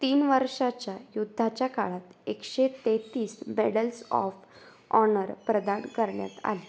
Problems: constant background noise